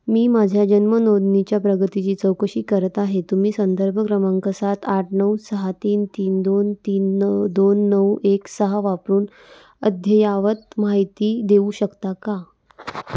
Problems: constant background noise